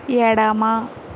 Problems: constant background noise